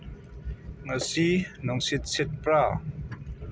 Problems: low volume